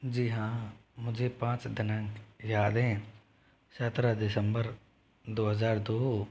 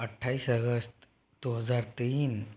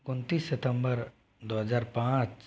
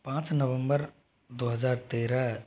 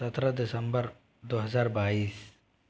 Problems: constant background noise